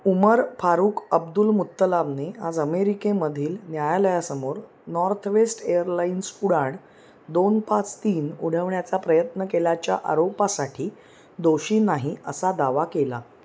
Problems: none marked